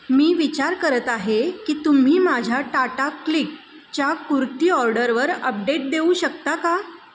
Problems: constant background noise